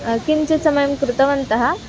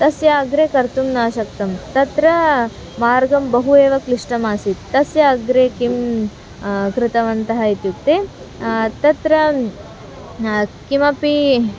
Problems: background sounds at intervals